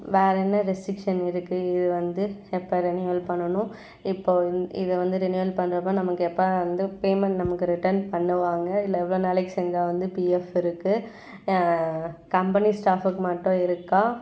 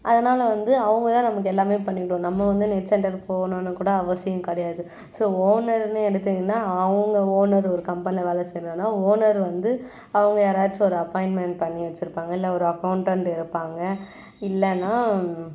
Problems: none marked